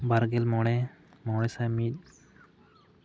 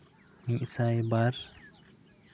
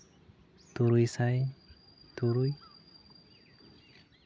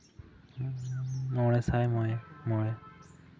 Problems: none marked